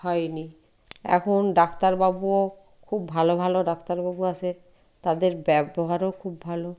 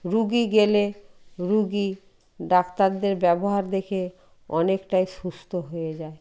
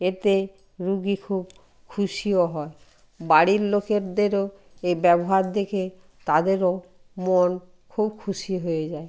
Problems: background sounds at intervals